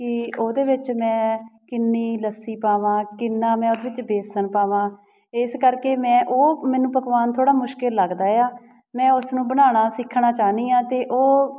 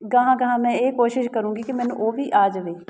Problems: background sounds at intervals